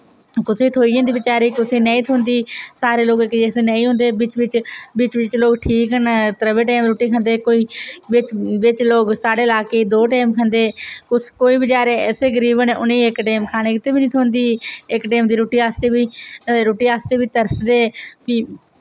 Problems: none marked